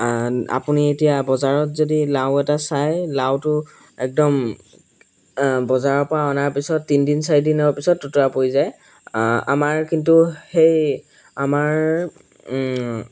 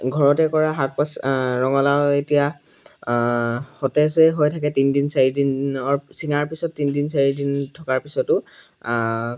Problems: background sounds at intervals